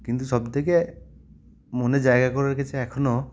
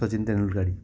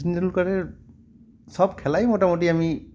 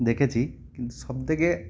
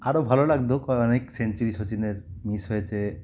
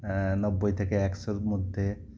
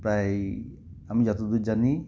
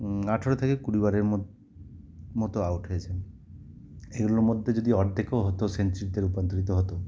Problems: background sounds at intervals